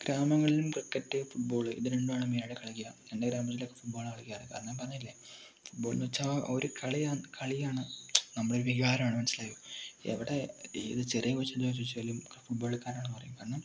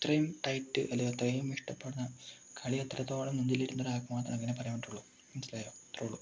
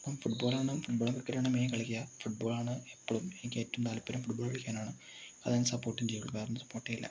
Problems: low volume